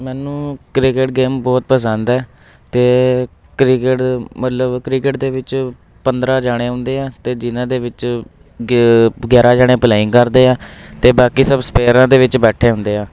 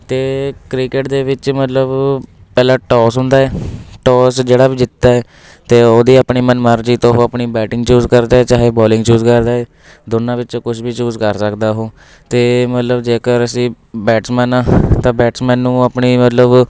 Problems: constant background noise